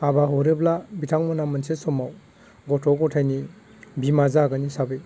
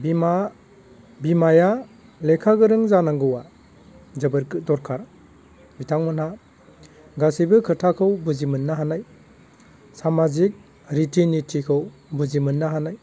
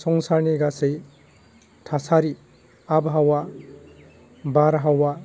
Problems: none marked